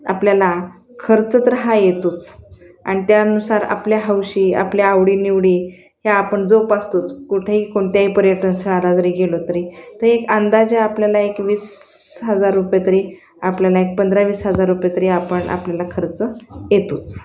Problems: constant background noise, continuous background conversations